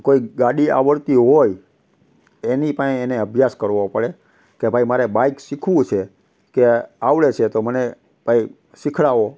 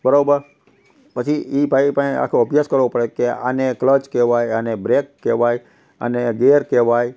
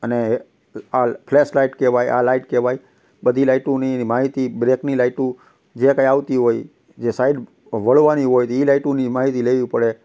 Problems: constant background noise